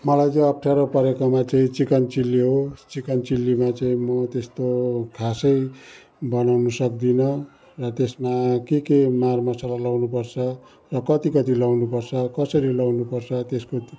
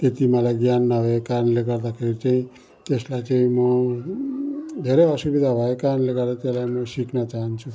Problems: continuous background conversations